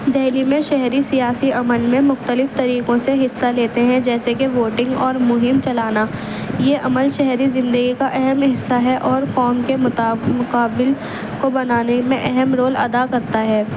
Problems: constant background noise